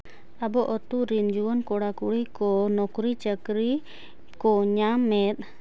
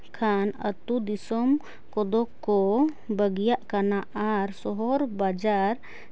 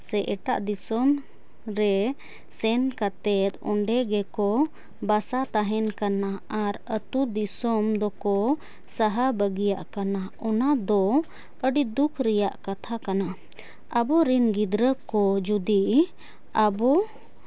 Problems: constant background noise